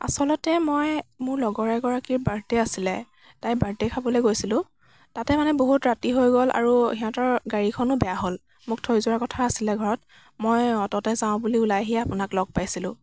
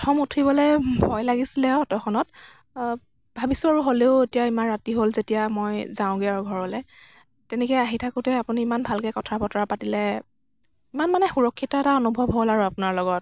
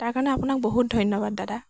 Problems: none marked